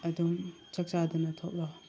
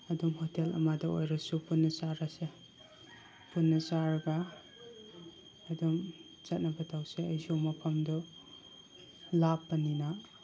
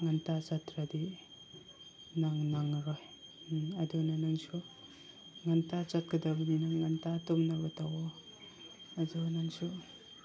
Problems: constant background noise, background conversations at intervals